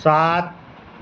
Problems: none marked